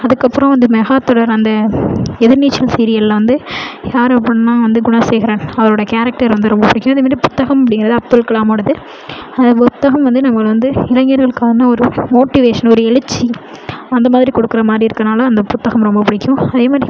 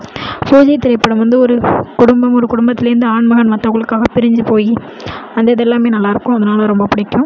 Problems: none marked